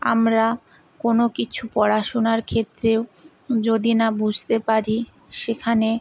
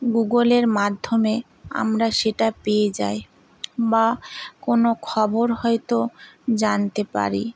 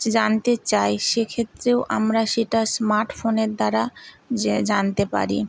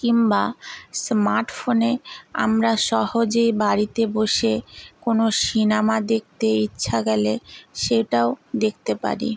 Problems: constant background noise